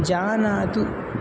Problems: constant background noise